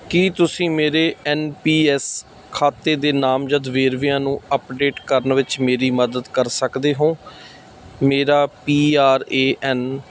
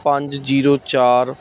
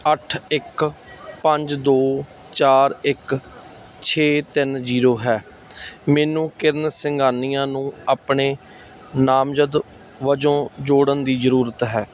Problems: none marked